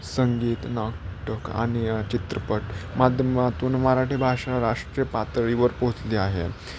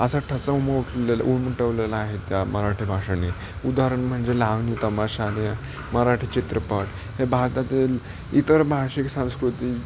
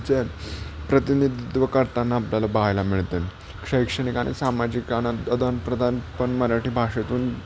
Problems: constant background noise